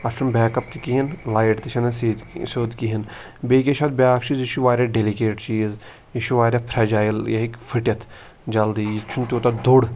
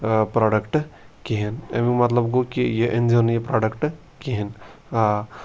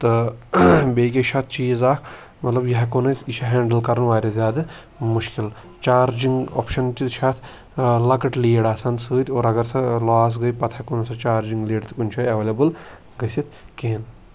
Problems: constant background noise